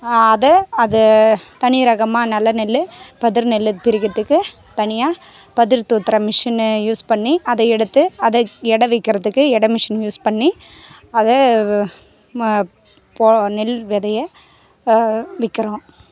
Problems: background conversations at intervals